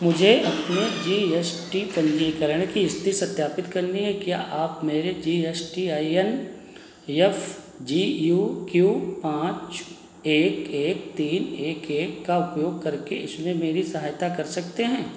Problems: none marked